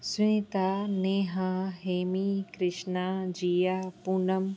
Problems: constant background noise